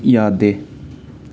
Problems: none marked